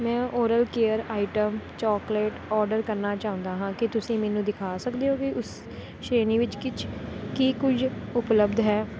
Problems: none marked